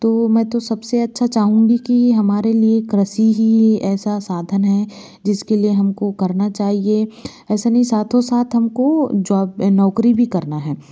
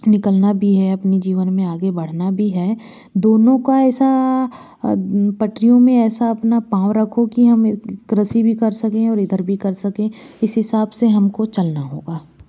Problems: constant background noise